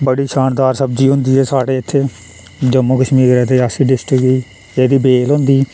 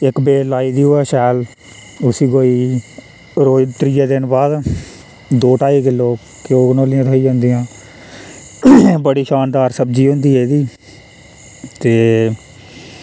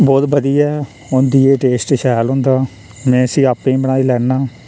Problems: constant background noise